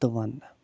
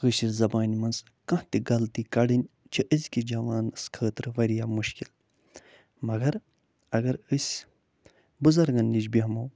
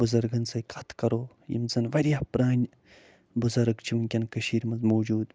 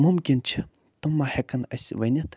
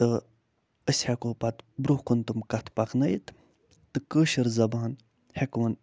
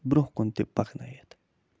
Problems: none marked